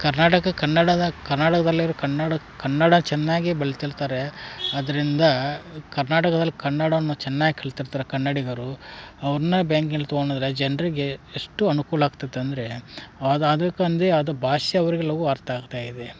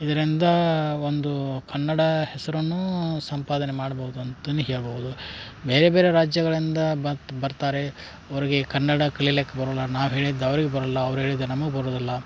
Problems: background conversations at intervals